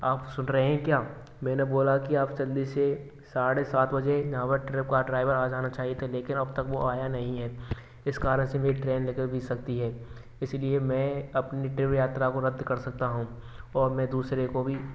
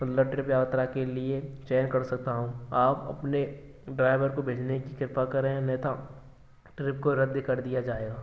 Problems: constant background noise